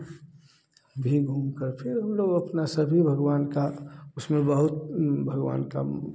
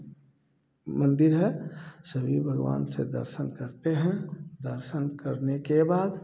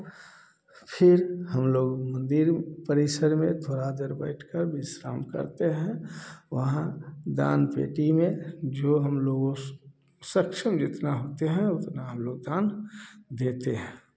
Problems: background sounds at intervals, echo